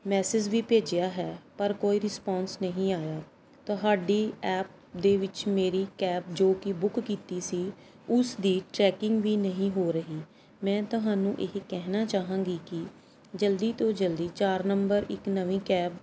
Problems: background sounds at intervals